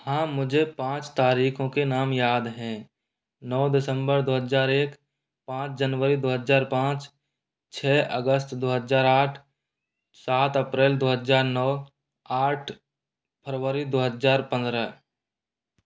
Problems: none marked